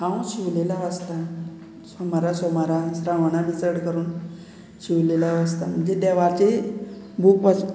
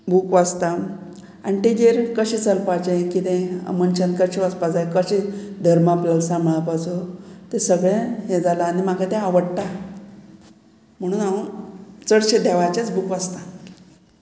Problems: background sounds at intervals